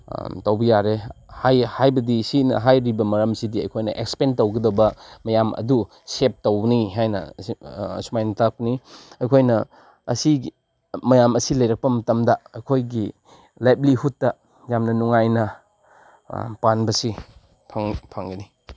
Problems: none marked